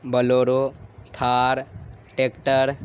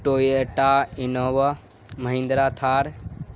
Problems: constant background noise